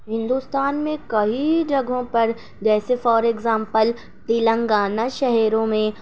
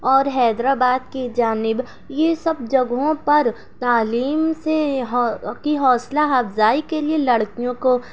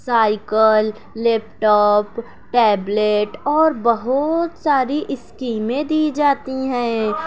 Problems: background sounds at intervals